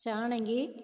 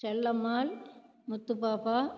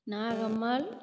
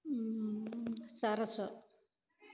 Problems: low volume